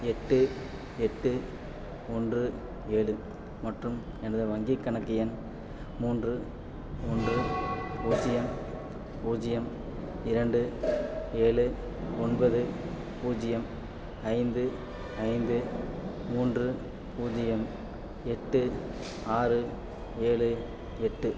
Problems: constant background noise